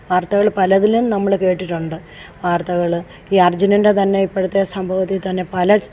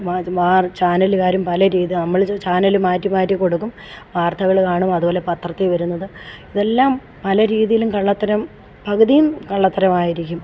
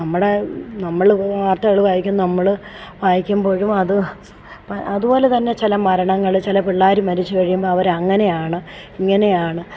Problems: background sounds at intervals